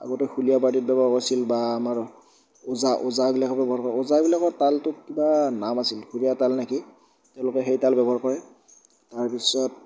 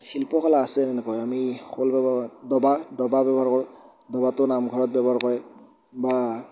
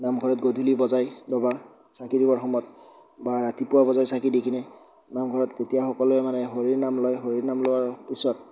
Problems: none marked